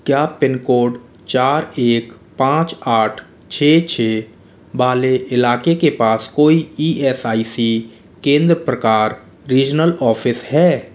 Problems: constant background noise